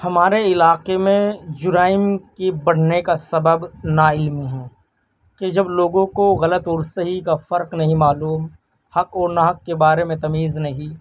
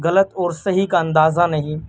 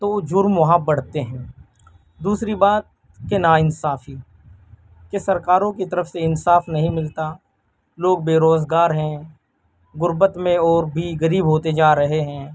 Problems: background conversations at intervals